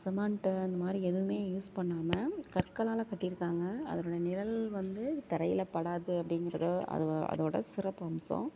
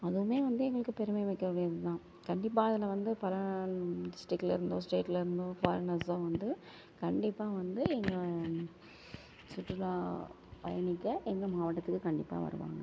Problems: background sounds at intervals